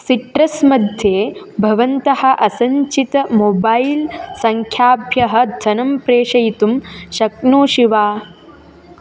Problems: constant background noise, continuous background conversations